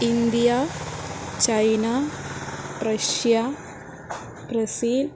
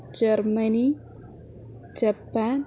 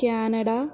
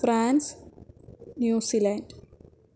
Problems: background sounds at intervals